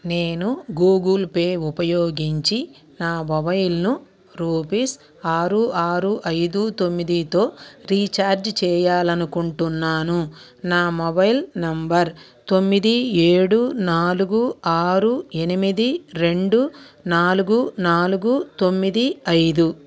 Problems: none marked